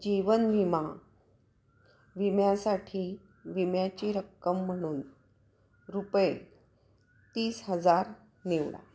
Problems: constant background noise